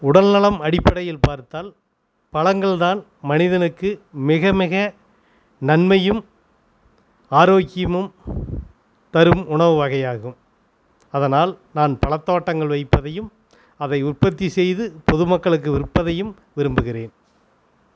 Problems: constant background noise